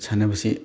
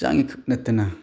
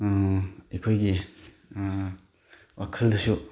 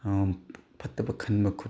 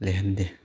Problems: background sounds at intervals